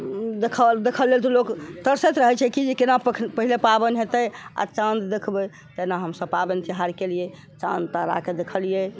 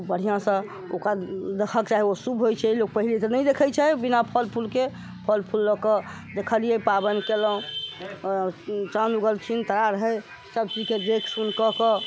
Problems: constant background noise, background conversations at intervals